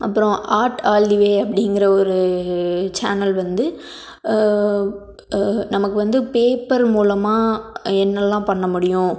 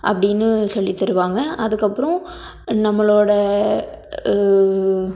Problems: none marked